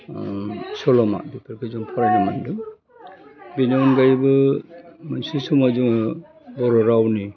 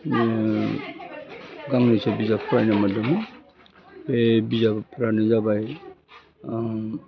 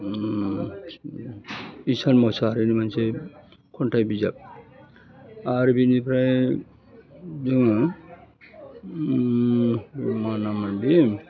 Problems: constant background noise